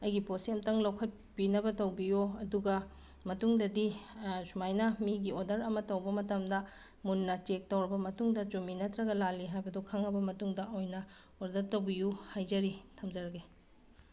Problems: background sounds at intervals